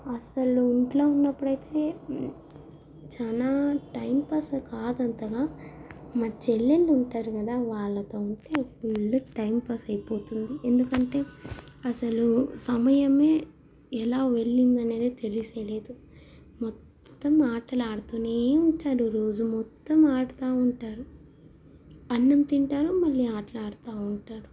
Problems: none marked